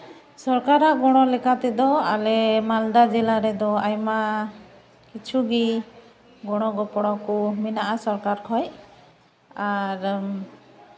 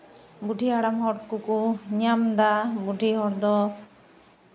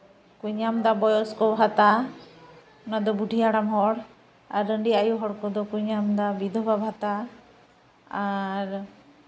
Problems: background sounds at intervals